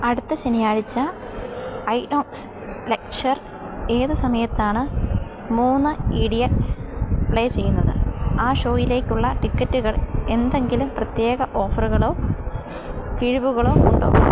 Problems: background sounds at intervals